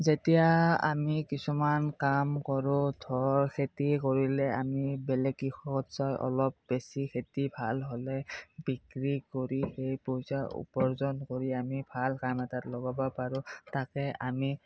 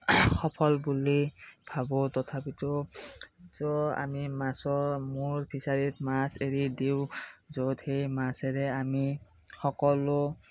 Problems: background sounds at intervals